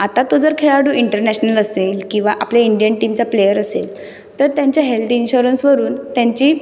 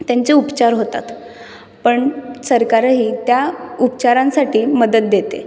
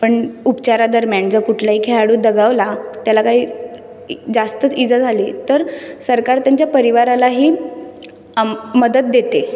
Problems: none marked